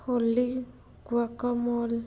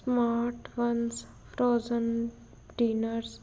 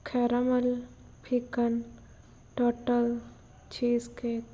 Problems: background sounds at intervals